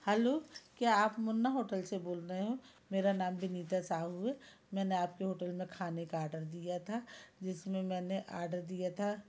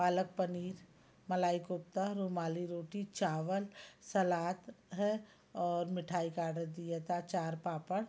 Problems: background sounds at intervals